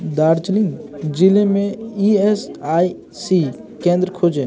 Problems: constant background noise